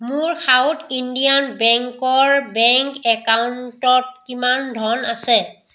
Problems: echo